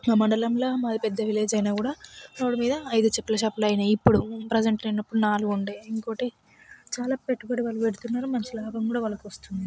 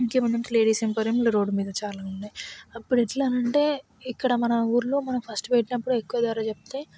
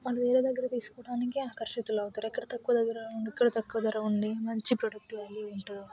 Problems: none marked